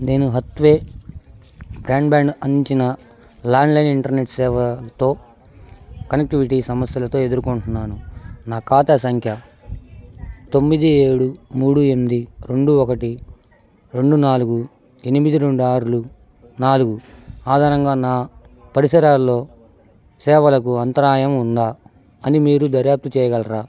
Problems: constant background noise